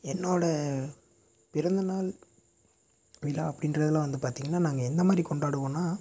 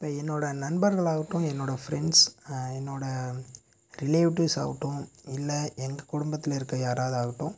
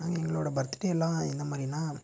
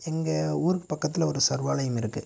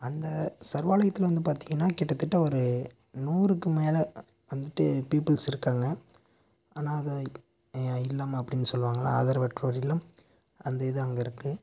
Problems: none marked